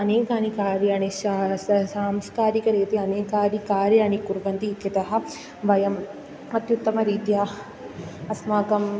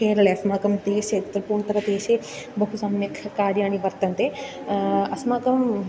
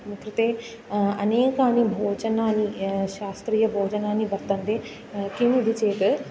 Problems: constant background noise